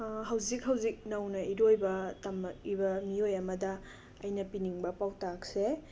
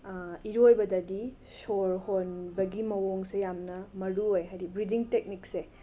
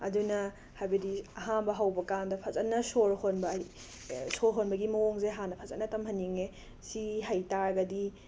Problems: background sounds at intervals